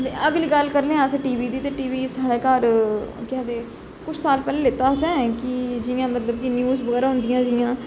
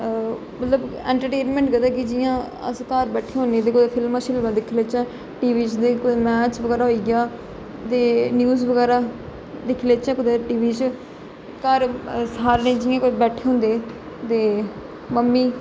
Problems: constant background noise, echo